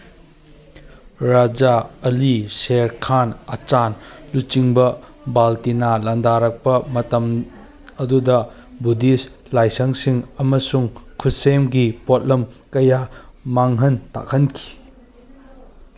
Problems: background sounds at intervals